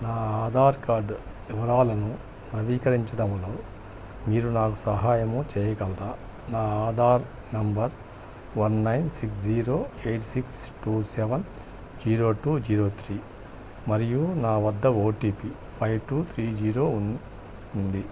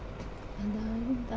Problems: none marked